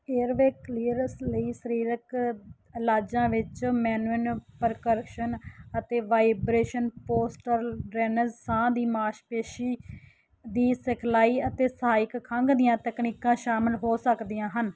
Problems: background sounds at intervals